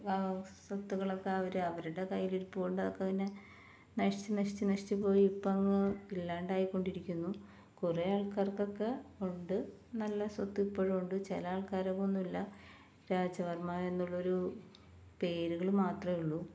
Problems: none marked